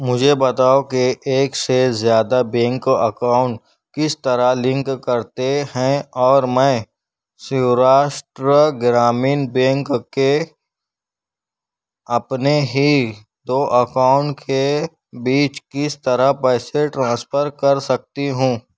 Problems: none marked